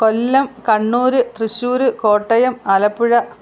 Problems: none marked